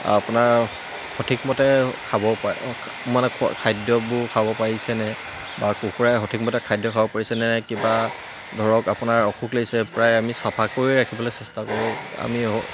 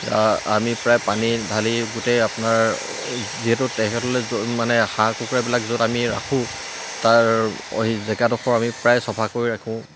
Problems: constant background noise